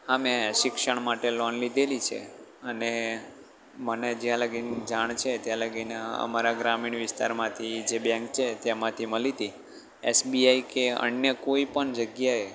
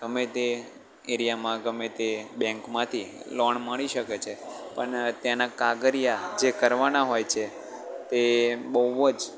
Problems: none marked